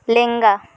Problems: none marked